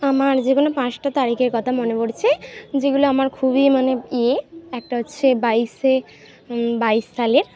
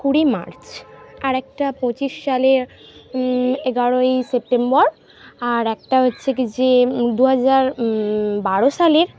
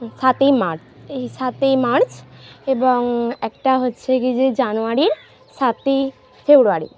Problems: constant background noise